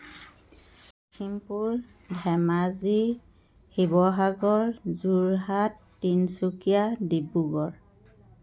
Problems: background sounds at intervals